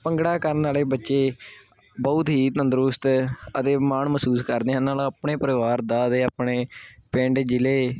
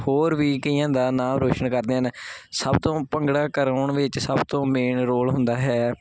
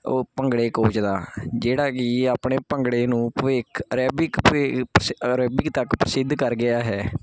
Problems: constant background noise